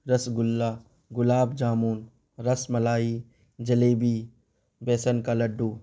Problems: constant background noise